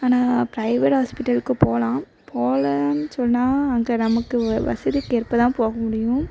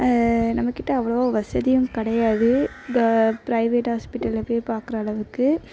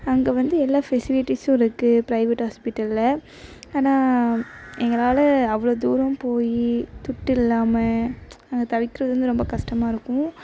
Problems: constant background noise